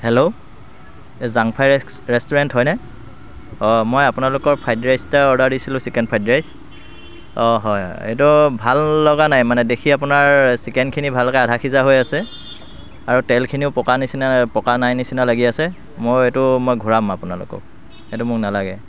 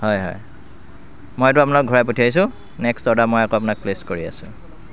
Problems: constant background noise